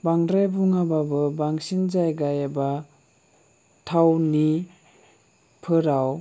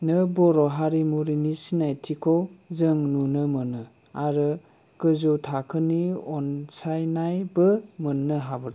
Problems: none marked